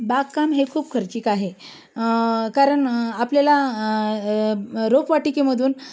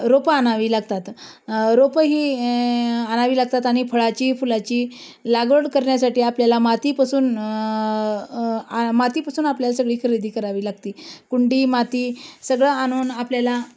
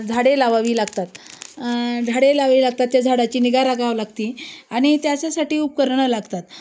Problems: none marked